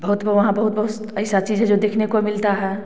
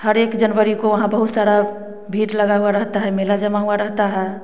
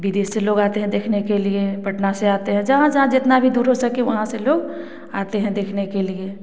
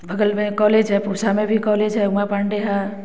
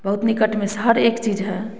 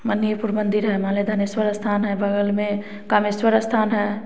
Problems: constant background noise